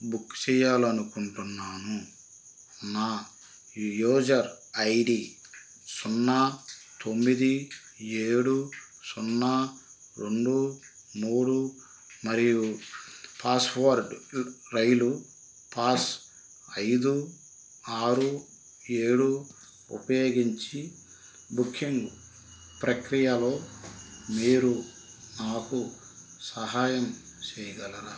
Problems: constant background noise